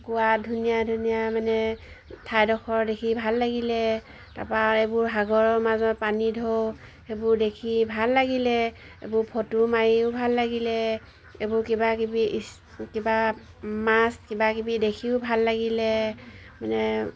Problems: none marked